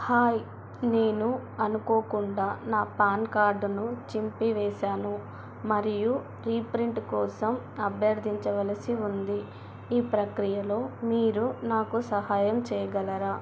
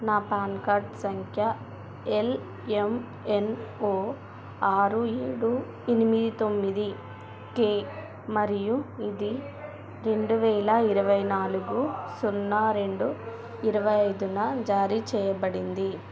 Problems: constant background noise